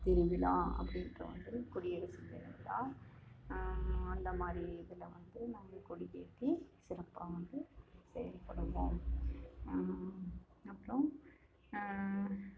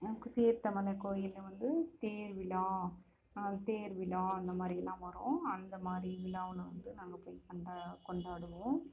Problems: constant background noise, low volume